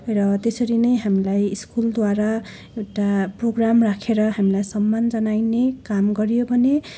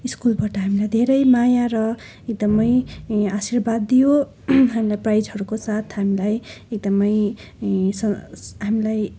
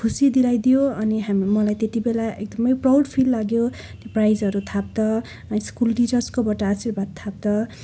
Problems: constant background noise